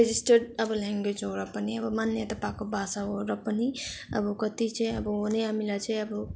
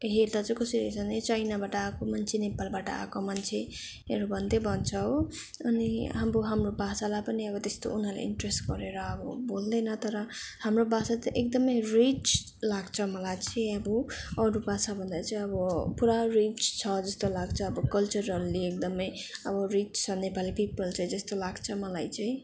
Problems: background sounds at intervals, background conversations at intervals